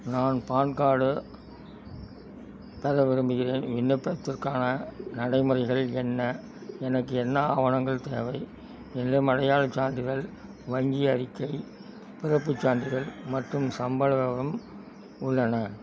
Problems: constant background noise